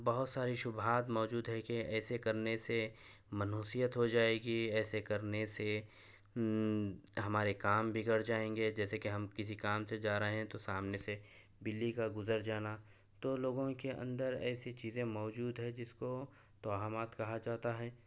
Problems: none marked